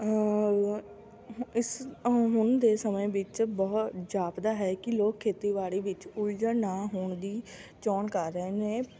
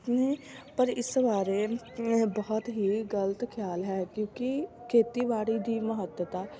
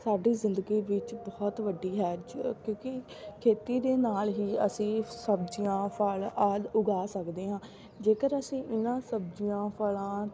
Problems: constant background noise, continuous background conversations